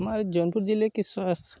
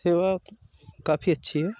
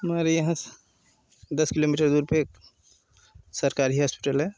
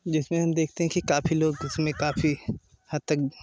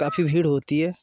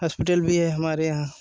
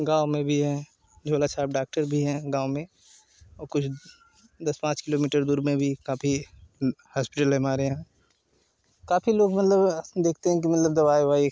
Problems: none marked